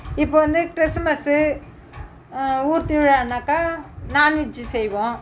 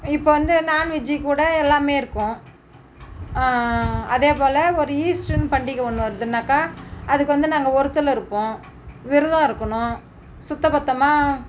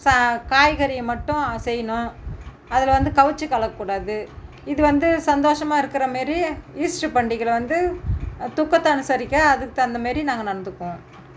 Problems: none marked